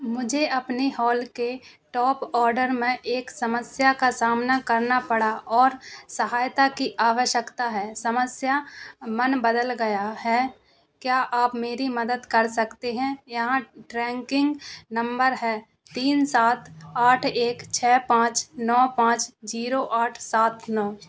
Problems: constant background noise